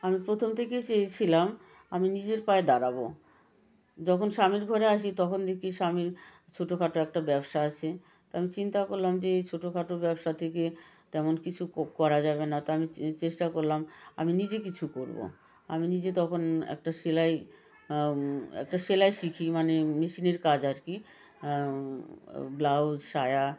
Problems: continuous background conversations